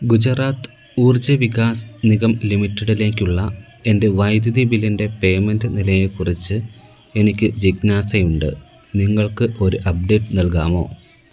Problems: background sounds at intervals